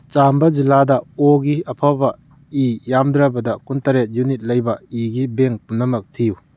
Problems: none marked